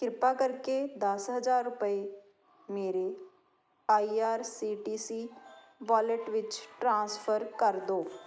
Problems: constant background noise